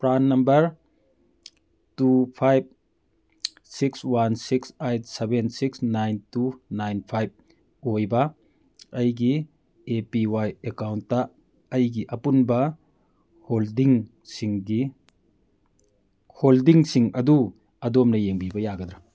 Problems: none marked